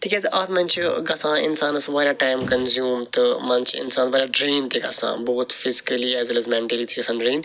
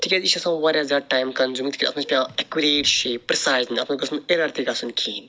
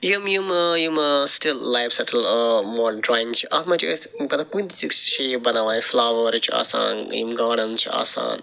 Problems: none marked